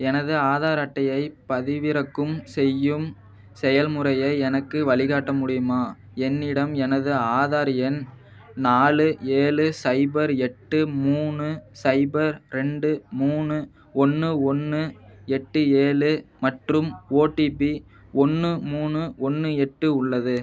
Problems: none marked